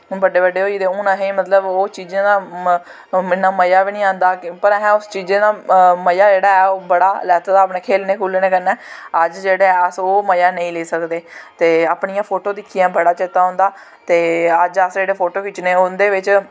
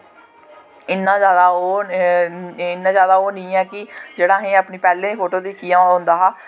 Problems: constant background noise